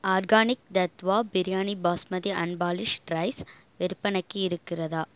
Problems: none marked